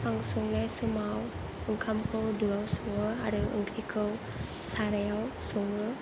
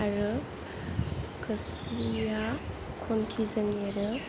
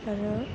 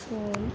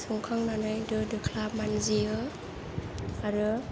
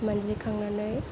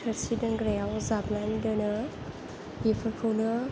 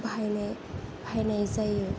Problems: low volume